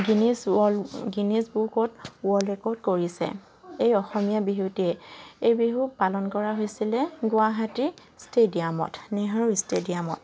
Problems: constant background noise